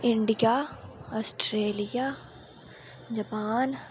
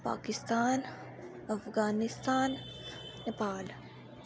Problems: none marked